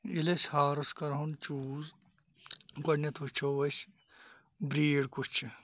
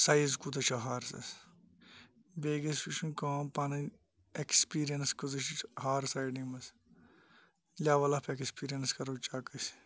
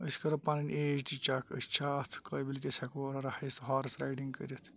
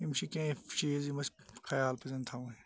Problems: background sounds at intervals